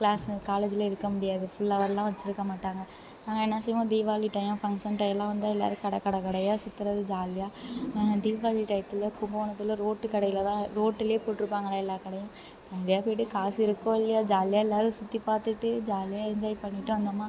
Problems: none marked